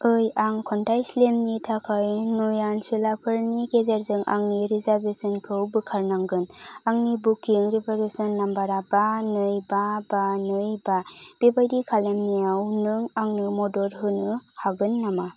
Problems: constant background noise